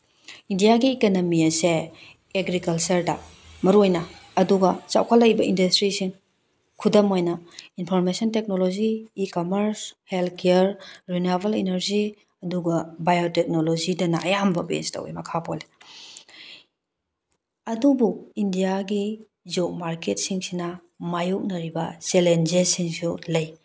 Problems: background sounds at intervals